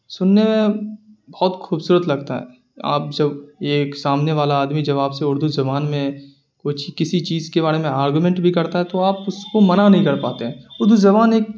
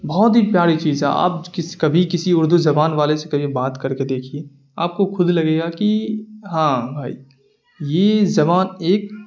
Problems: none marked